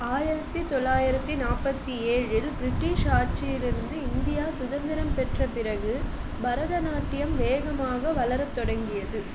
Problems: constant background noise